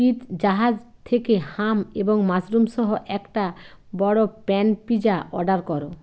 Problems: constant background noise